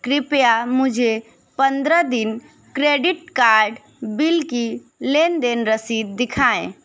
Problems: constant background noise, continuous background conversations